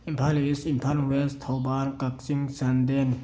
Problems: background sounds at intervals